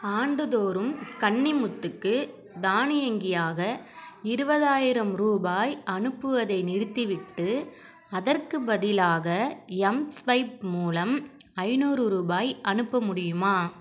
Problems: continuous background conversations